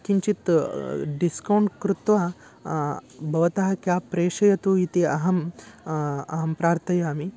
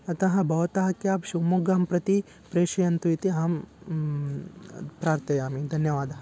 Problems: none marked